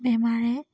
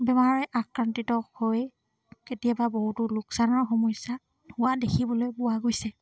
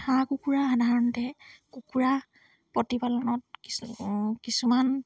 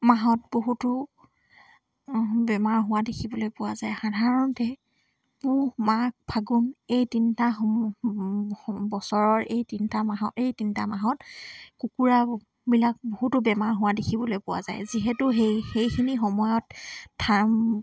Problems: none marked